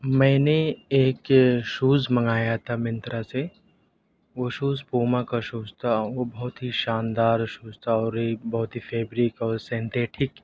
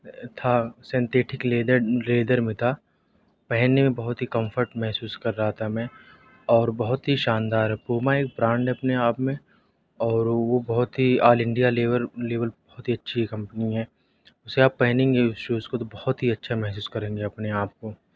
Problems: none marked